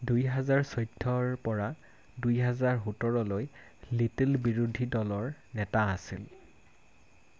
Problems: constant background noise